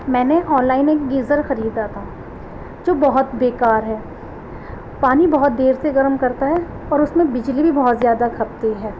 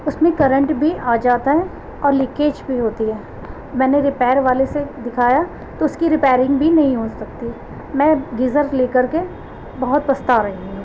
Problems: constant background noise